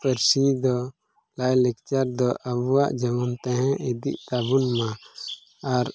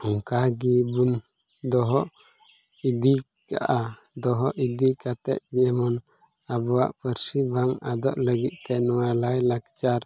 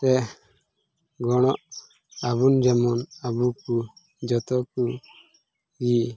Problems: none marked